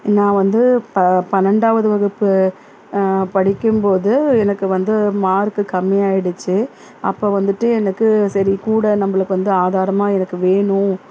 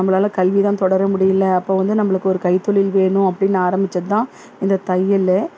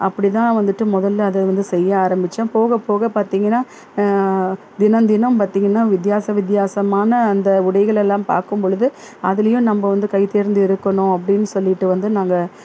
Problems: constant background noise